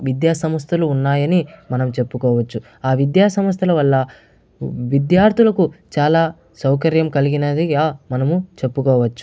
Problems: none marked